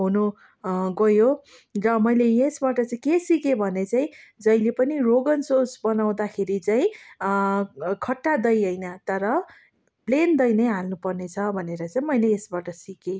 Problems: none marked